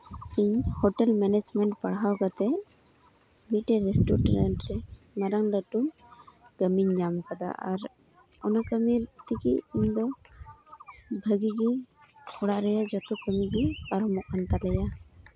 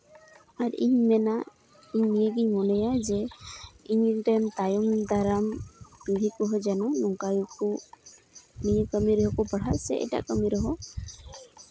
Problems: constant background noise, background conversations at intervals